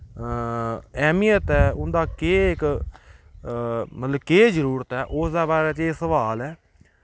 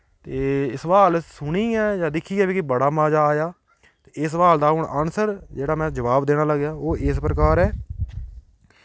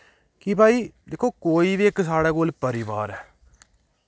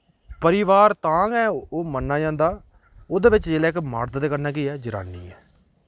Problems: none marked